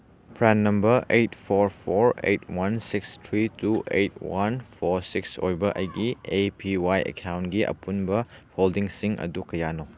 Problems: background sounds at intervals